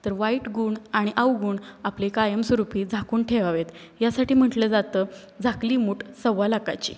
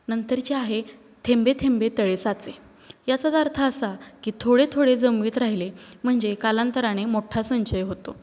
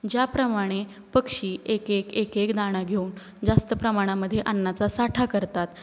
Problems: constant background noise